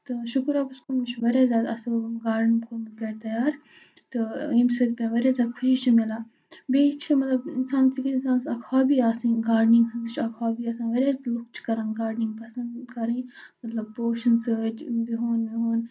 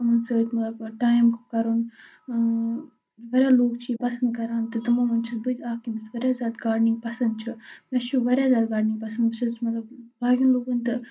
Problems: none marked